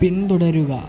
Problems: constant background noise